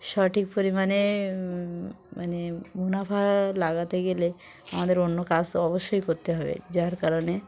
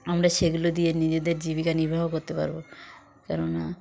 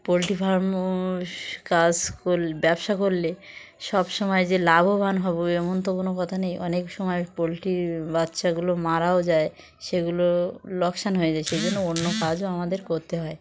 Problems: background sounds at intervals, background conversations at intervals